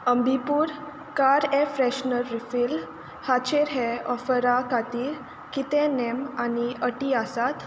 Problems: constant background noise